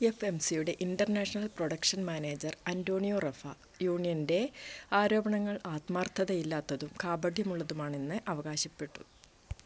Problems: constant background noise, low volume